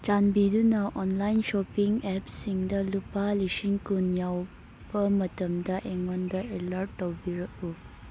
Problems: background sounds at intervals